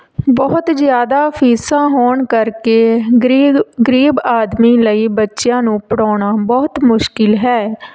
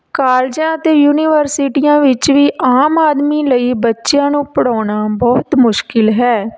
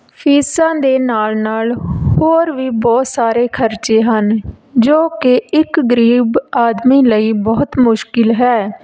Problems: none marked